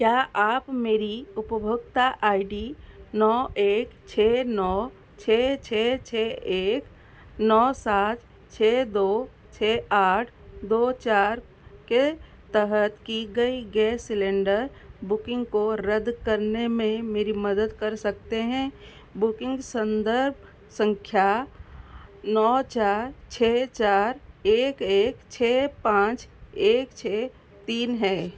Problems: none marked